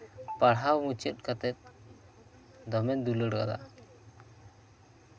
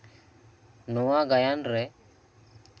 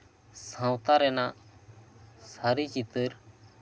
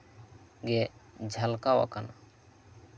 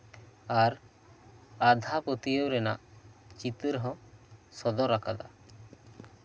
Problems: constant background noise, background conversations at intervals